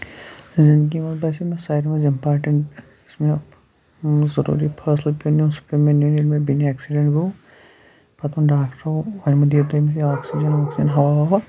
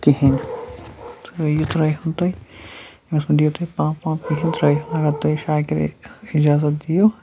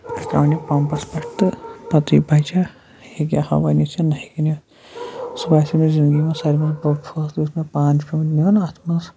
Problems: background sounds at intervals